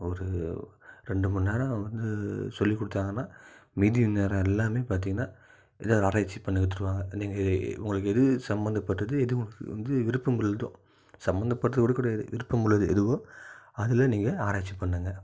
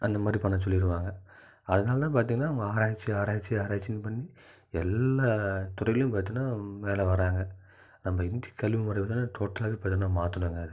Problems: low volume